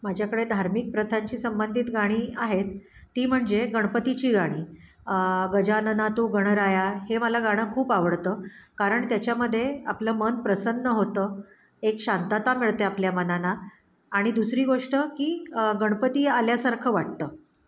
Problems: background sounds at intervals